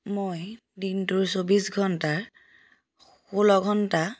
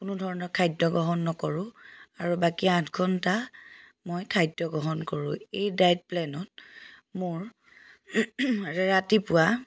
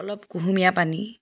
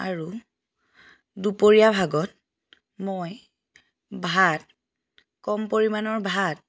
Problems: background sounds at intervals